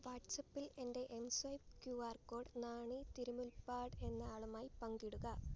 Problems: background sounds at intervals